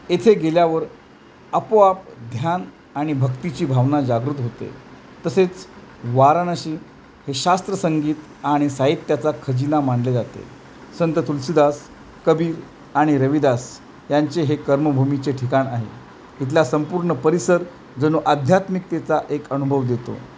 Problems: none marked